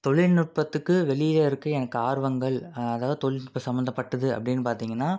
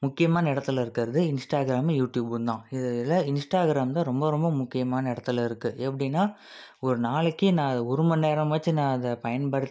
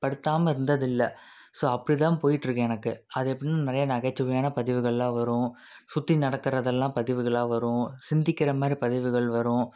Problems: none marked